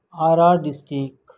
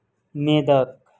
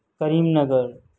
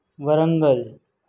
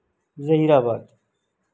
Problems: constant background noise